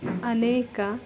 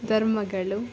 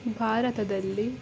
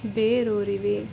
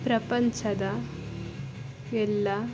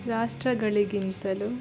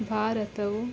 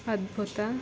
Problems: background sounds at intervals